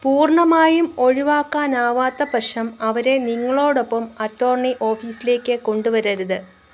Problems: constant background noise